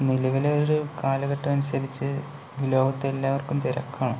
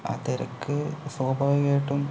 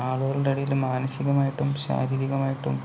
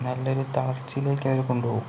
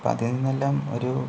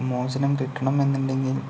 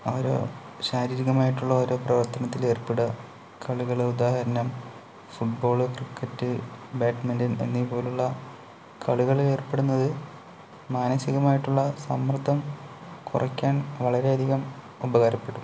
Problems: none marked